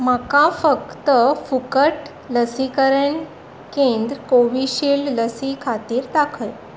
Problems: none marked